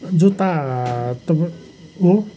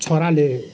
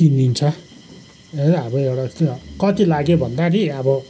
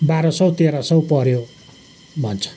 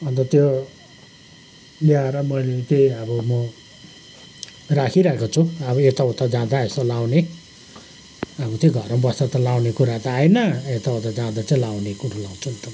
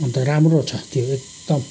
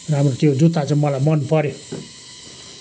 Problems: none marked